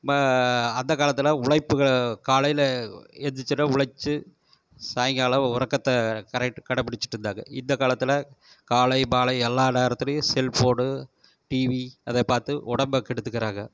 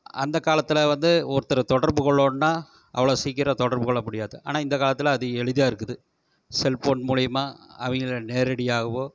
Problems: none marked